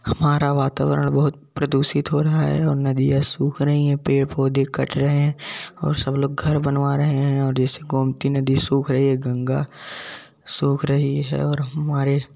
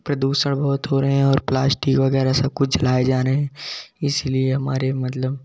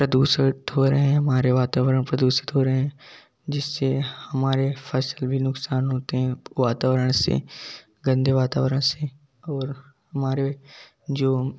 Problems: background sounds at intervals, background conversations at intervals